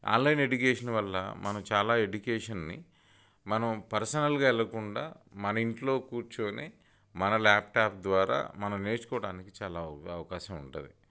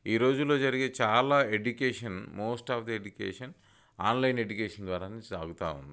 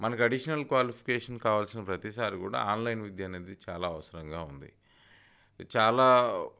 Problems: none marked